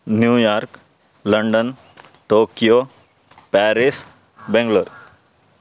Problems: constant background noise